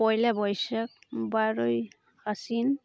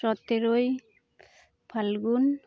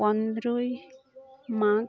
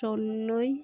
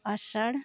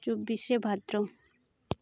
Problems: background sounds at intervals